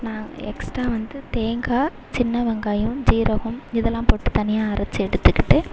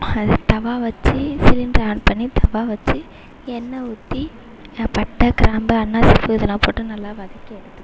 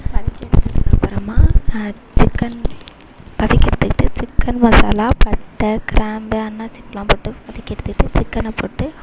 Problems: constant background noise